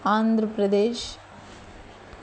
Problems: background sounds at intervals